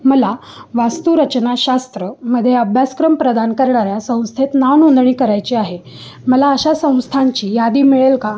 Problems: none marked